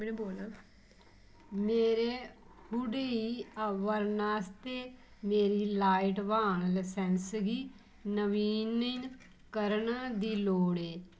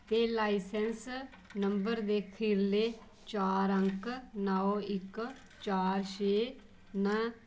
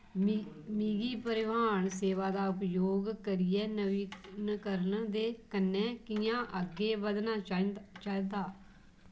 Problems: low volume